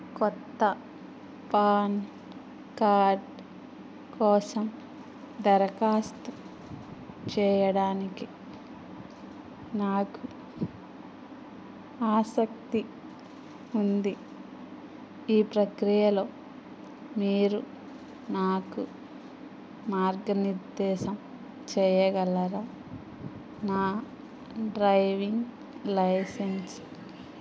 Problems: background sounds at intervals, background conversations at intervals